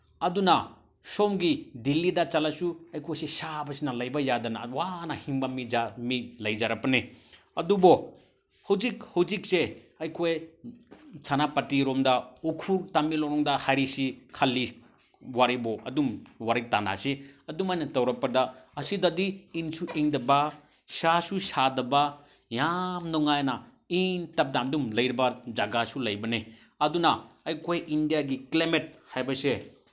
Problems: none marked